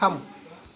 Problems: background sounds at intervals